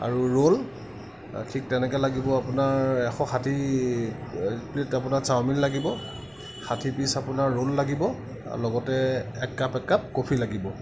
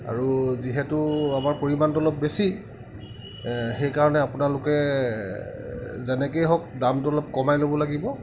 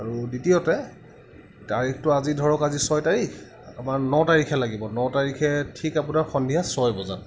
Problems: none marked